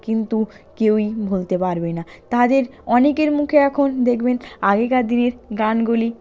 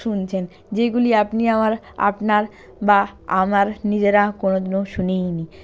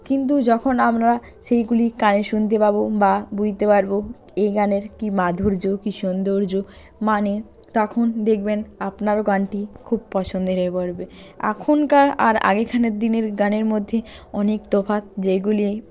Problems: none marked